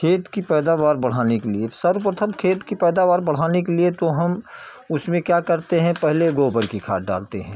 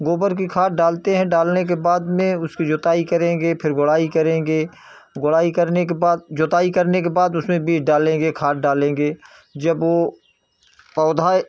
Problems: background sounds at intervals